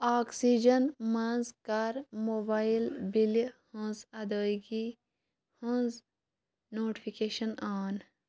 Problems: constant background noise